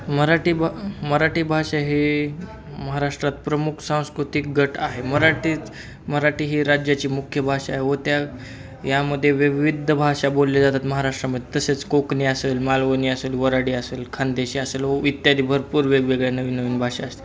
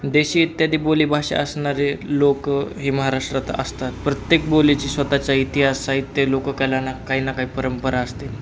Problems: constant background noise, background conversations at intervals